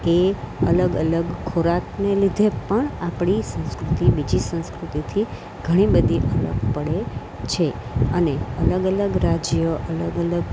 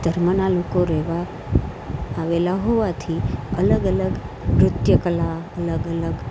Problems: none marked